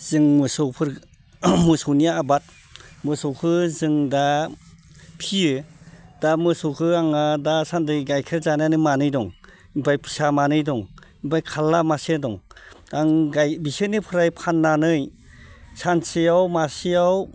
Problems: none marked